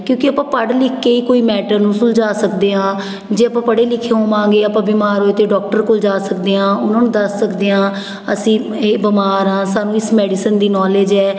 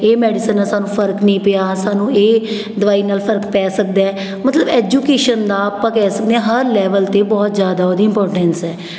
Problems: none marked